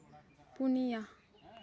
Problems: continuous background conversations